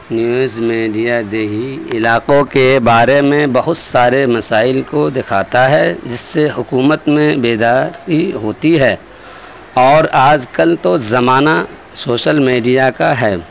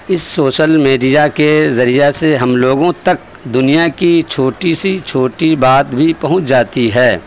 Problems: constant background noise, continuous background conversations